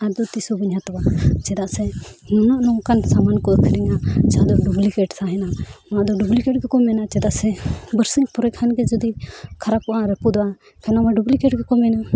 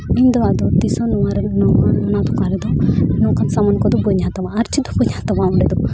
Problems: background conversations at intervals